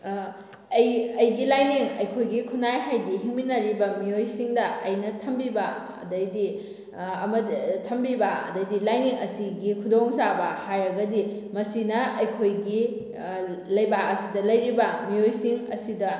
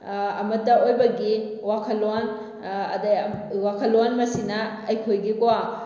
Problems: none marked